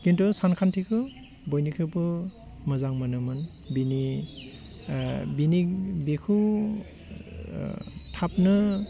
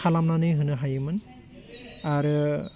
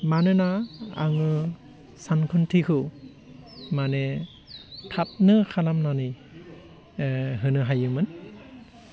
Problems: constant background noise